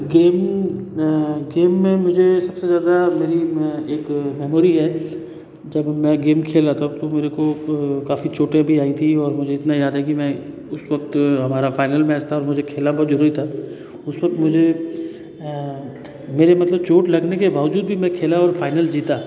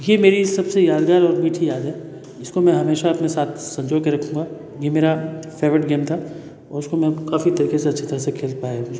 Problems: none marked